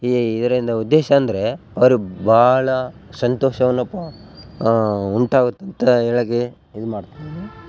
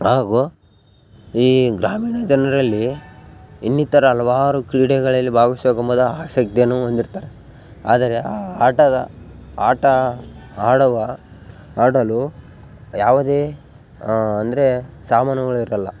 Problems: background sounds at intervals